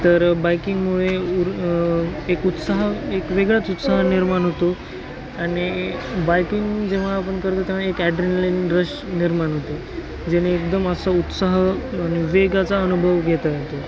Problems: constant background noise, continuous background conversations